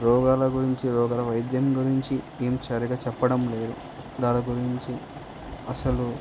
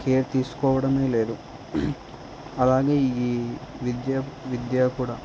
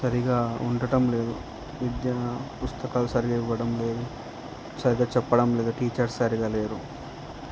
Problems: constant background noise